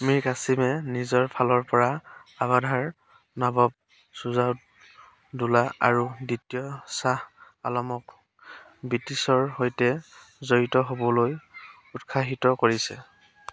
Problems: constant background noise